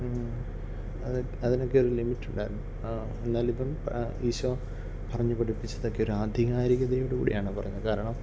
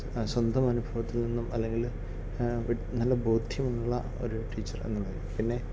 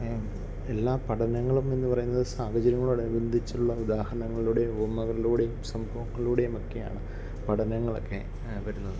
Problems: none marked